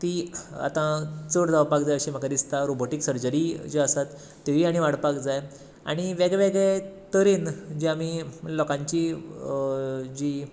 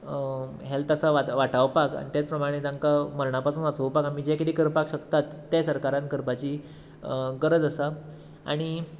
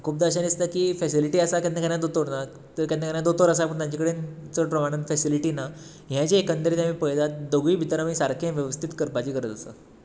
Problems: background sounds at intervals